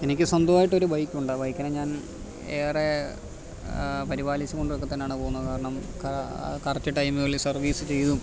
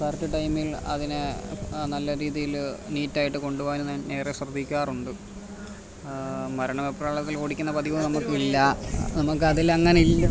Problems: background sounds at intervals